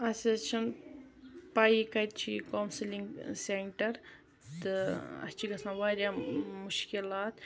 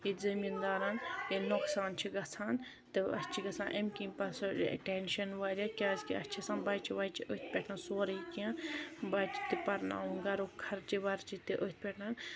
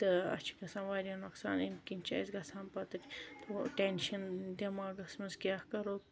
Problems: constant background noise